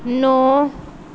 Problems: background sounds at intervals